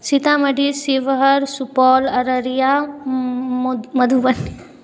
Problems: background sounds at intervals